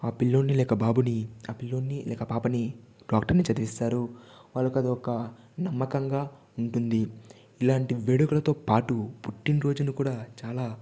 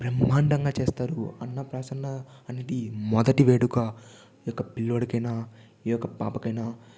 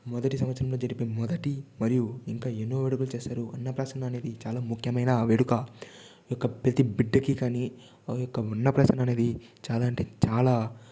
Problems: none marked